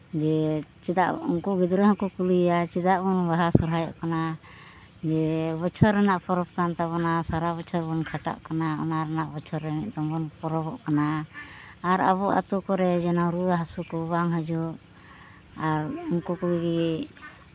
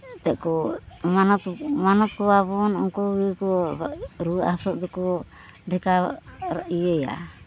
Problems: none marked